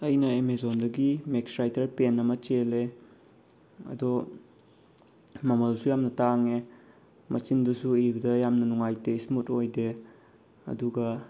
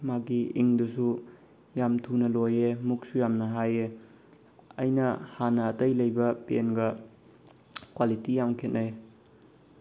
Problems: none marked